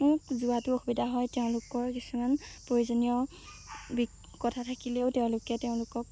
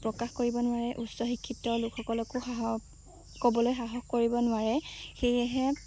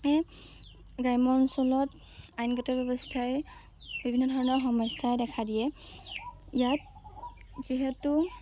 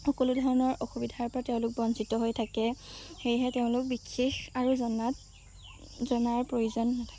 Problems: low volume